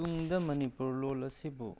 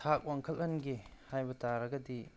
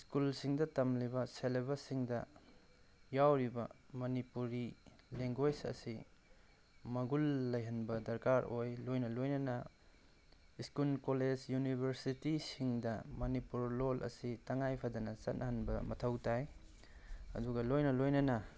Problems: background sounds at intervals